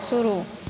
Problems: none marked